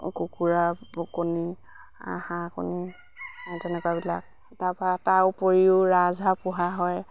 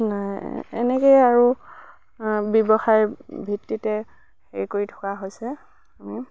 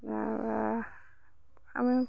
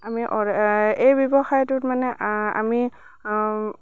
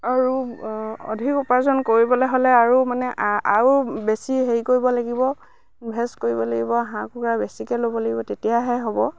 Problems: none marked